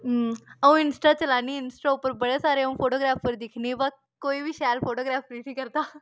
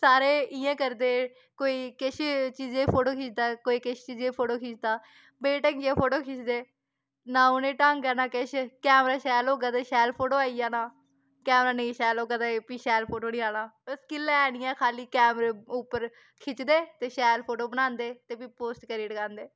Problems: background sounds at intervals